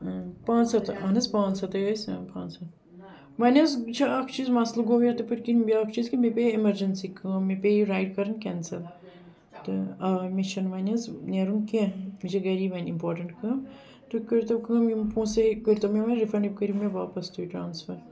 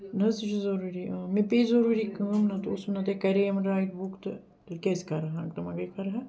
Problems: background sounds at intervals